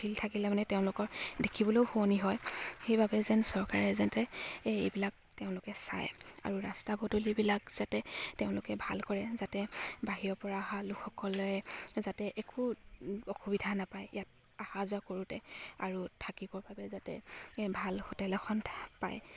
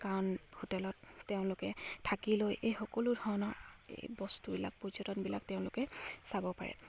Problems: none marked